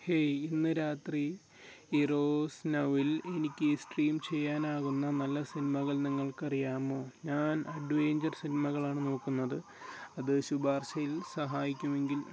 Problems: background sounds at intervals, low volume